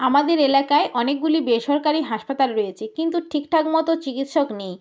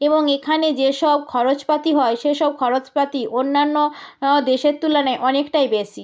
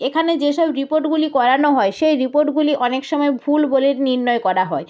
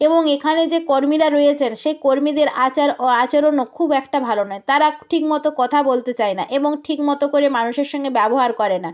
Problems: none marked